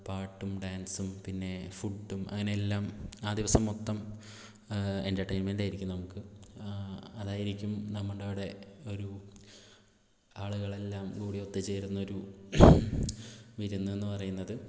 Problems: low volume